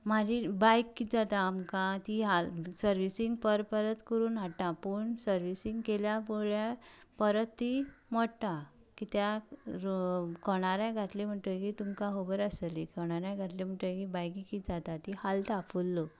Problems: background sounds at intervals, background conversations at intervals